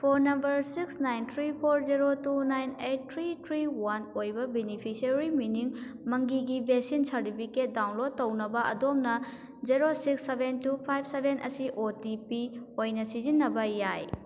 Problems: background sounds at intervals